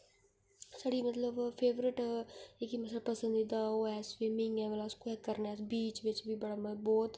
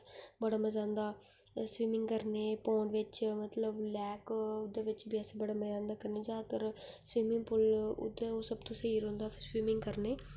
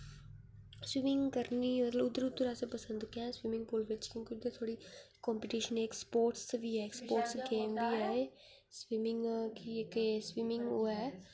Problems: low volume